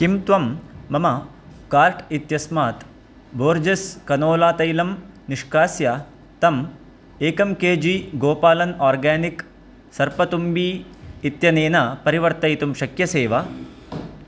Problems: constant background noise